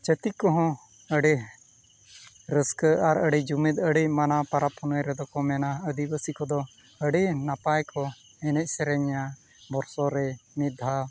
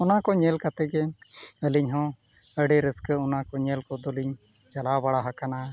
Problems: background sounds at intervals